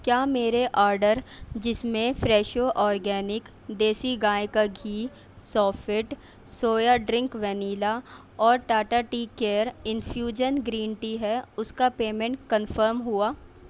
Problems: none marked